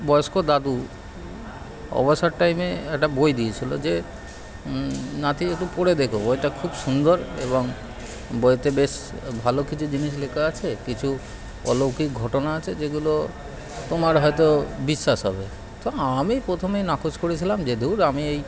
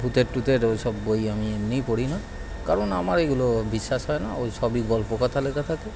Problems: constant background noise, continuous background conversations